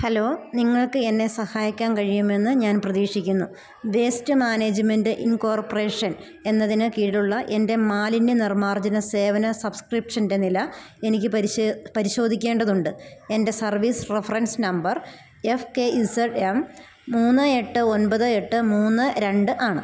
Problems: none marked